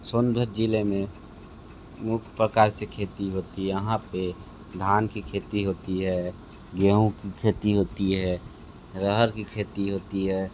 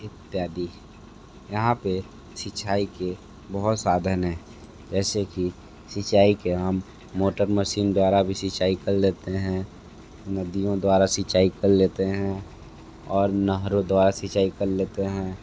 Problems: constant background noise